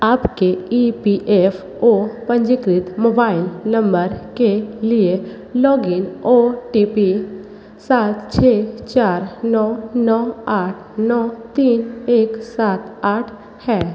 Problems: constant background noise, echo